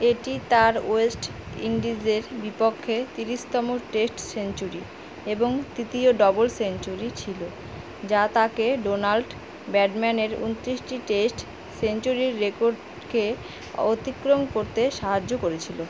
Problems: constant background noise